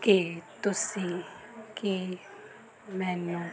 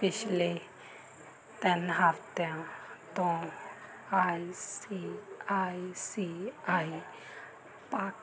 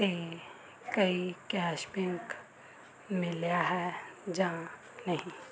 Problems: continuous background conversations